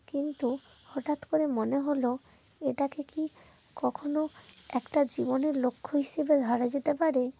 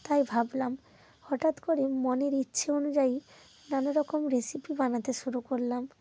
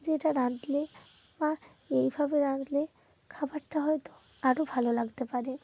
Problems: constant background noise